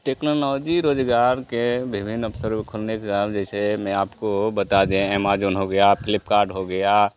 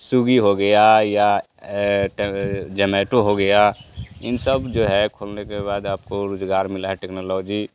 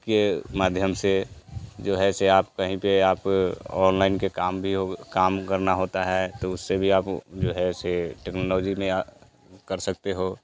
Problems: none marked